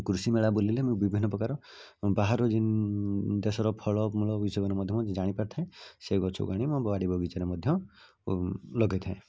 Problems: low volume